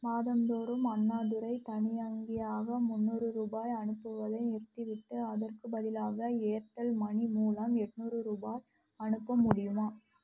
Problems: low volume